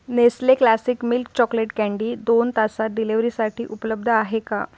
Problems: none marked